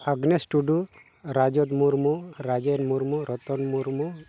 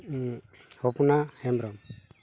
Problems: background sounds at intervals